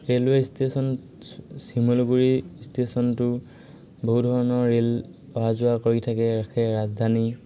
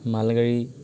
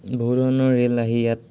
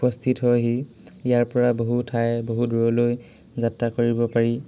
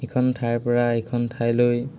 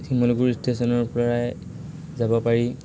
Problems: constant background noise, background conversations at intervals